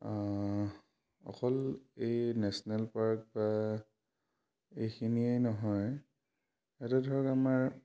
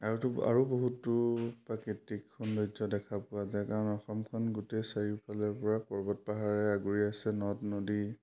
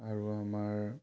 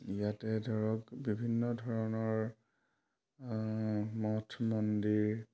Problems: none marked